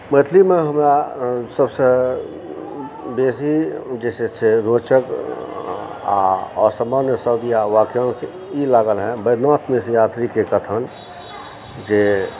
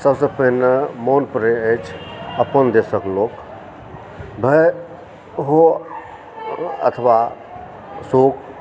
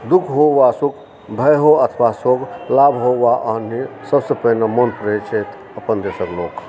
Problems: constant background noise, continuous background conversations